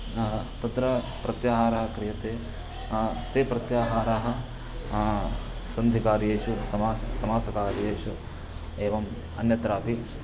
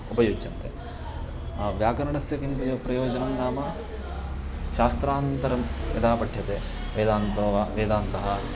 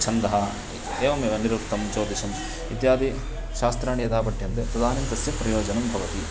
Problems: none marked